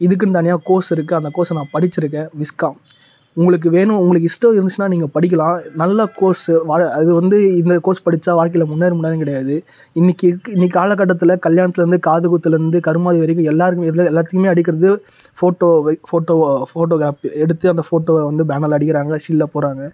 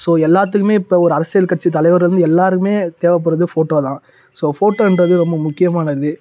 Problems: none marked